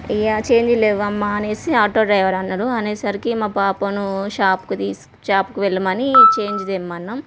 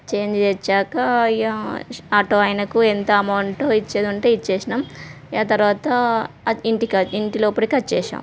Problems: background sounds at intervals